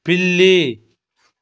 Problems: background sounds at intervals